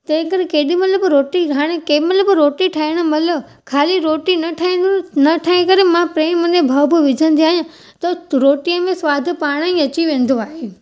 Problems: none marked